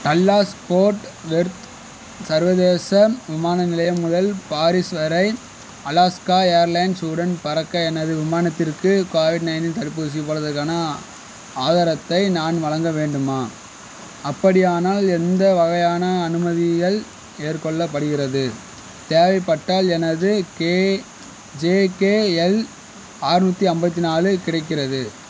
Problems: background sounds at intervals